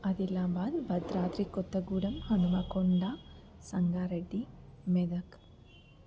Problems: background sounds at intervals, low volume